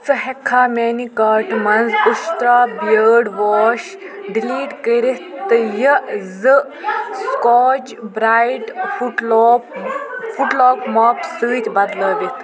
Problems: constant background noise, continuous background conversations